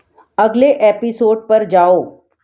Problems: none marked